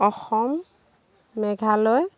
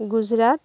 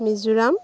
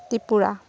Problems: none marked